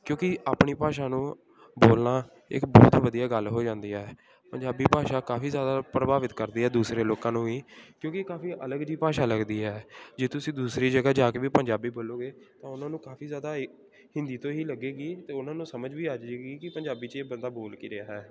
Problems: continuous background conversations